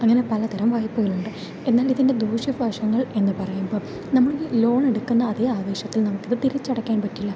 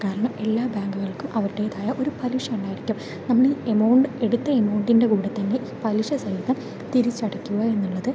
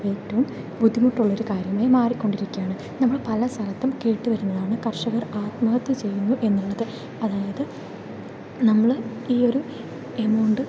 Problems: constant background noise